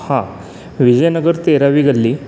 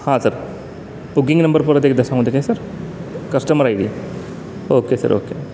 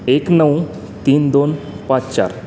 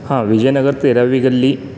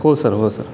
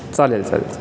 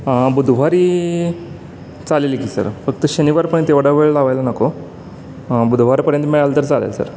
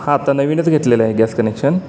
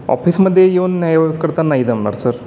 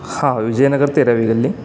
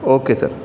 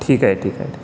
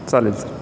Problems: none marked